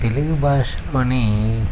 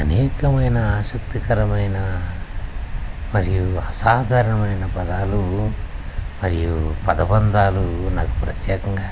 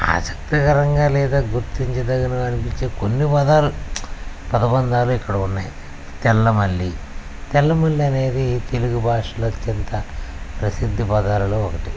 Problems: constant background noise